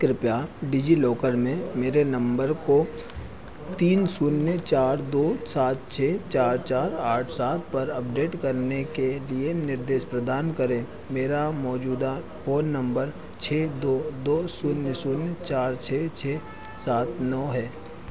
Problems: none marked